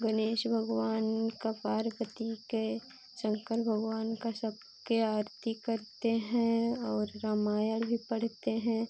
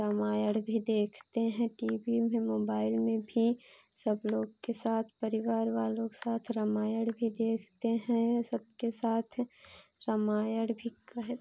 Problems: constant background noise